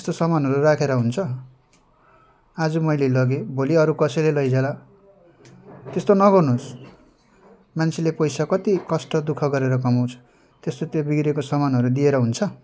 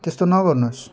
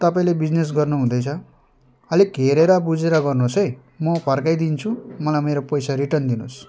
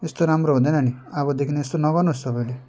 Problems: background sounds at intervals